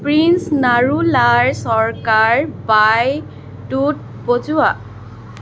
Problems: constant background noise